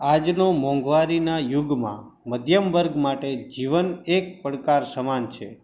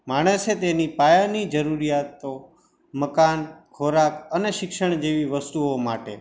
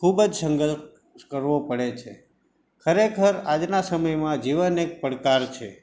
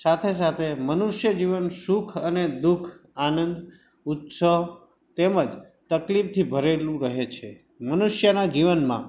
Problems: background sounds at intervals